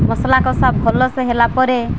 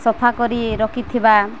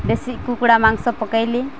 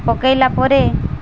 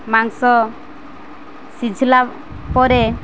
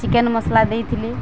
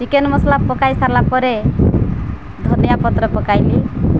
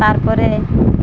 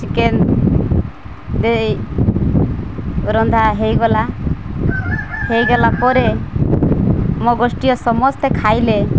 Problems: constant background noise